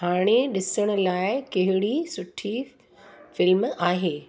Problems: constant background noise